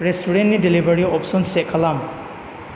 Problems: constant background noise